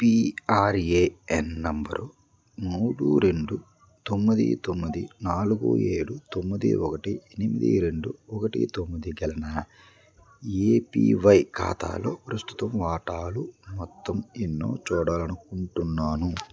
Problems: none marked